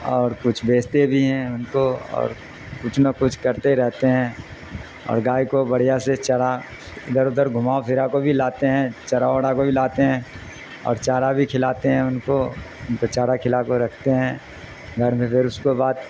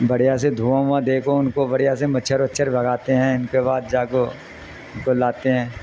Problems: constant background noise